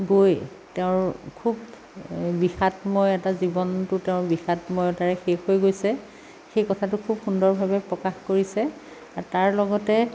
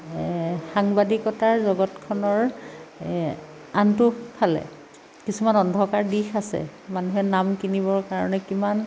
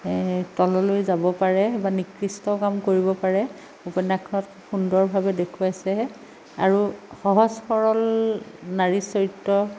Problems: none marked